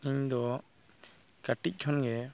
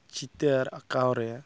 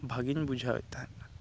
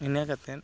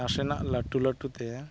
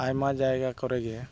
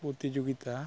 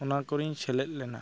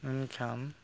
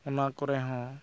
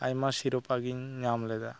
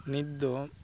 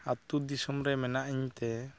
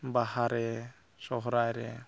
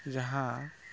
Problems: background conversations at intervals